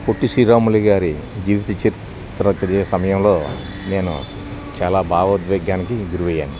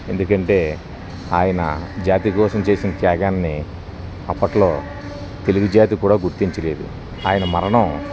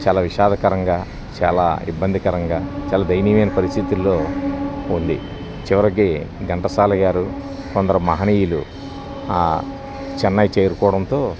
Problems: none marked